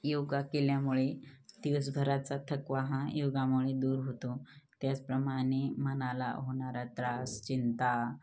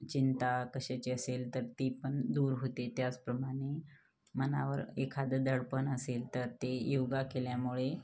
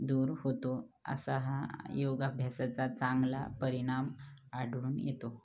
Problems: constant background noise, background conversations at intervals, low volume